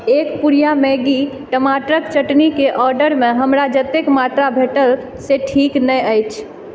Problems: background sounds at intervals